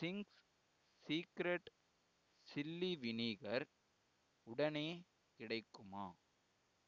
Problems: none marked